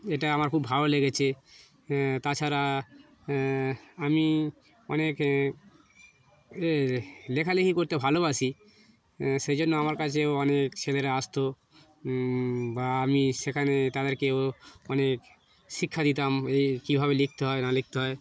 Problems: none marked